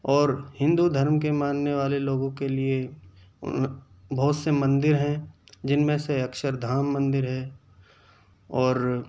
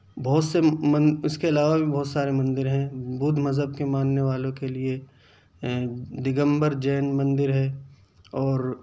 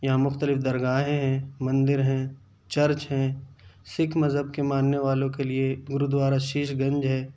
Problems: none marked